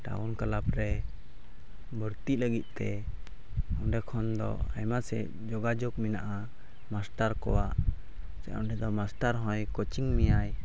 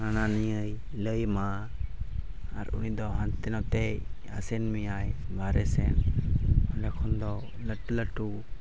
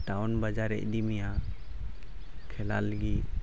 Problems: none marked